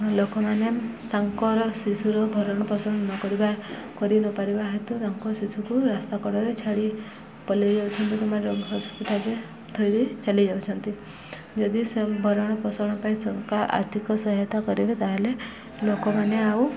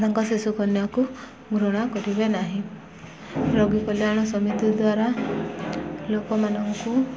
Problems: constant background noise, continuous background conversations